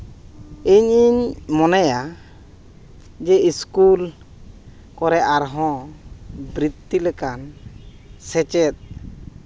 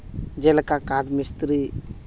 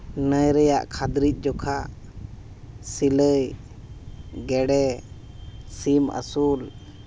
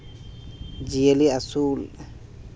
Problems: background sounds at intervals